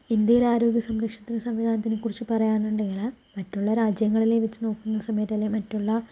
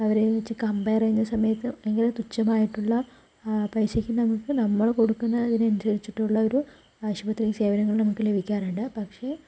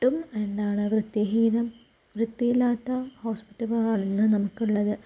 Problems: low volume